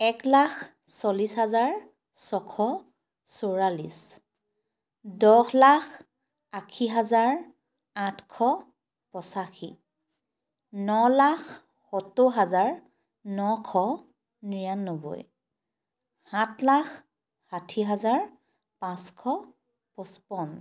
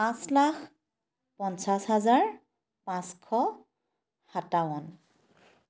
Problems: constant background noise